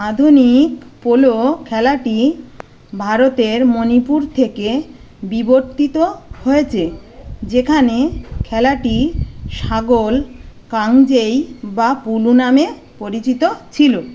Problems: constant background noise, background conversations at intervals